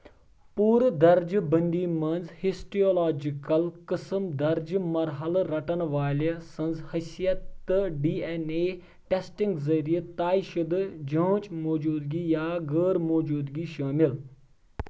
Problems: background sounds at intervals